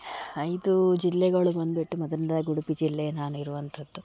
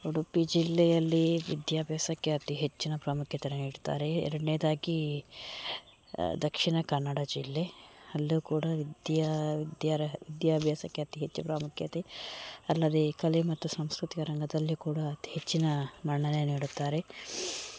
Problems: background sounds at intervals